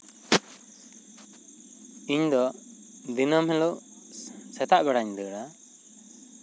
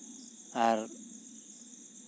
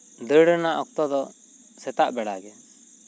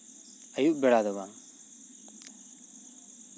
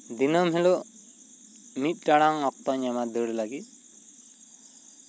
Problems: constant background noise